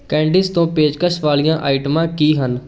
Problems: background sounds at intervals, background conversations at intervals